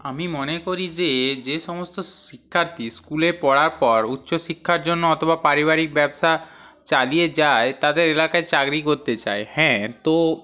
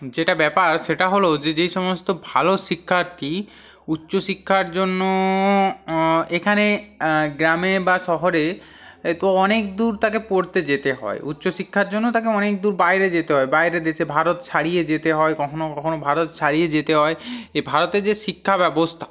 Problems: none marked